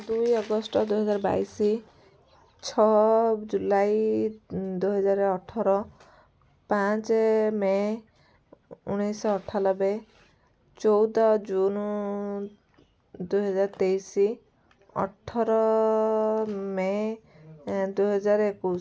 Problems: low volume